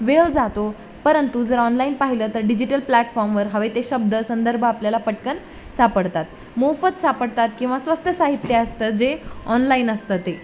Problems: constant background noise